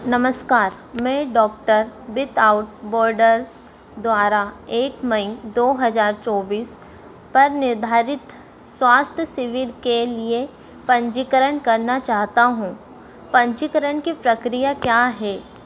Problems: constant background noise